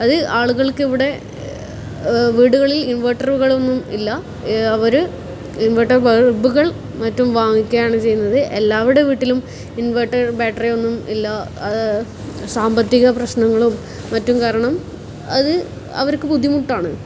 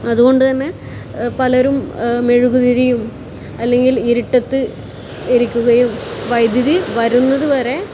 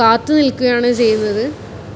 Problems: constant background noise